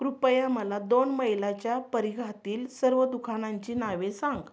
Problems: background sounds at intervals